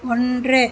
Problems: none marked